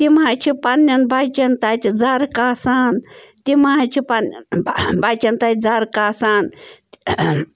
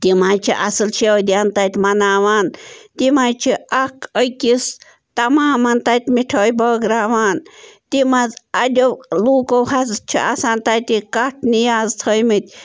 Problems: background sounds at intervals